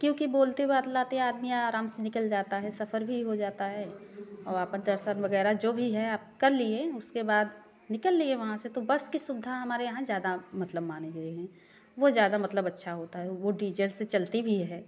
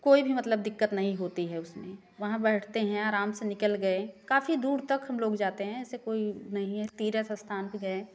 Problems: none marked